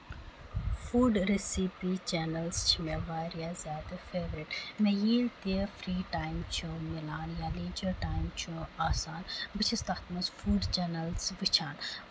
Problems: constant background noise